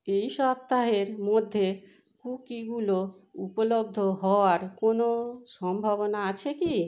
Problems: constant background noise